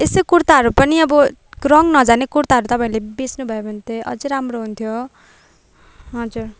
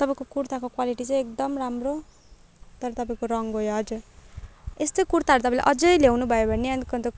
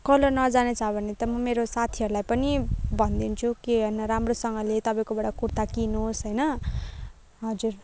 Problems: background sounds at intervals, background conversations at intervals